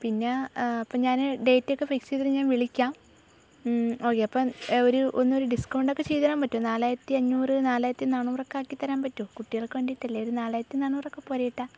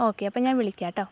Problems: low volume